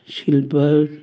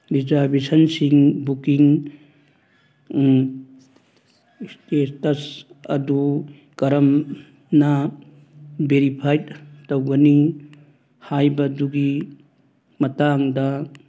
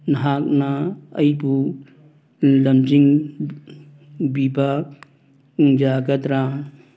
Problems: background sounds at intervals